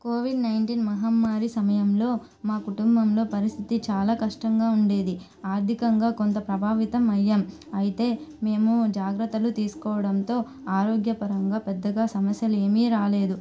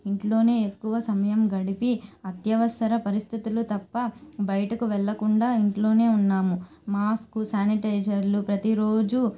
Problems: constant background noise